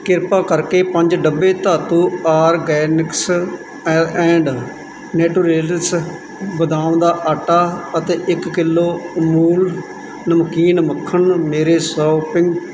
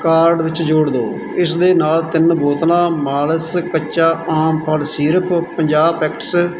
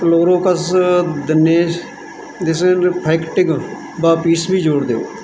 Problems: background sounds at intervals